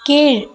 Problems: background conversations at intervals